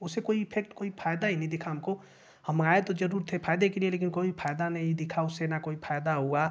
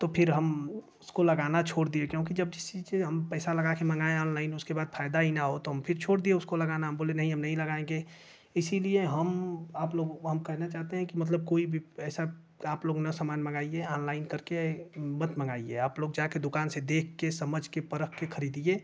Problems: constant background noise